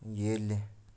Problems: background sounds at intervals, low volume